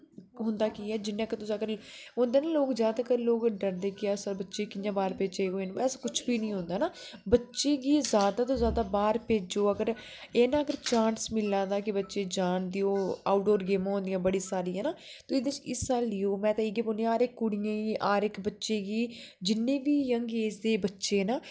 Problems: none marked